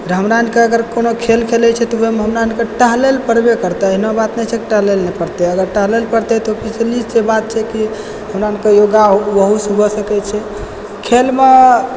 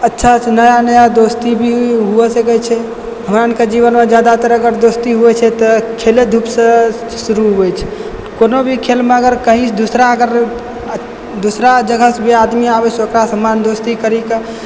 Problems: background sounds at intervals